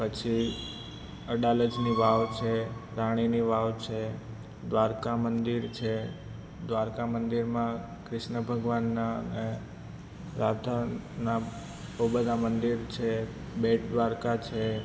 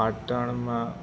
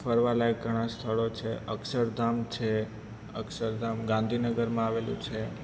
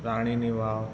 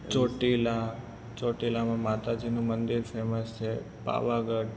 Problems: constant background noise